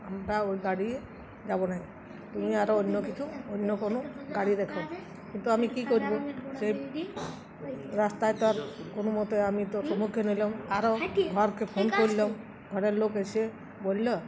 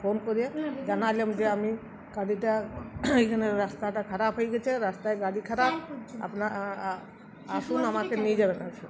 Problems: background sounds at intervals